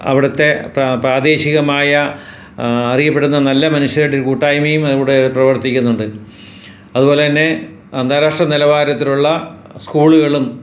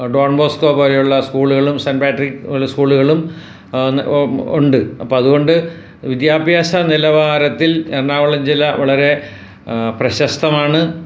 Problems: none marked